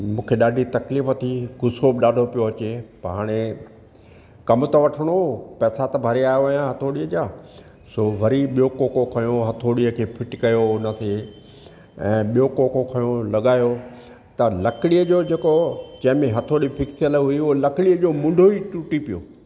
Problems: none marked